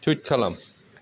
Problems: constant background noise